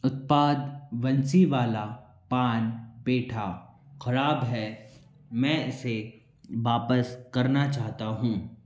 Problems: background conversations at intervals, echo